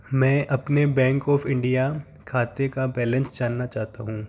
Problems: constant background noise, background conversations at intervals